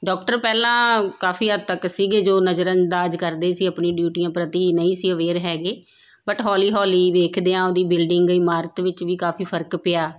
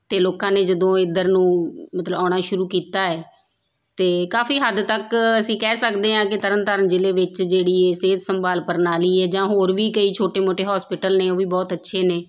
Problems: none marked